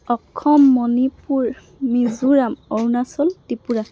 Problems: none marked